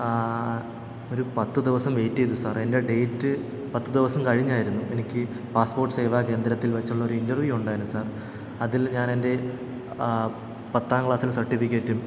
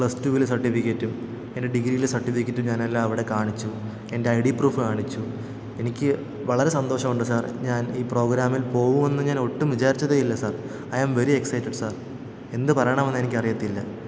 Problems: echo